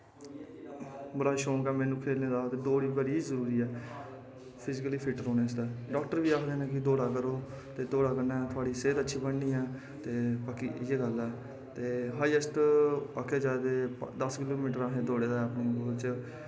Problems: constant background noise, echo